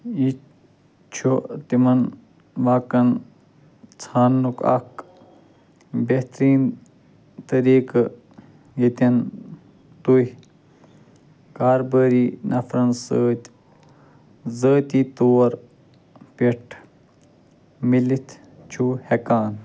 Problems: constant background noise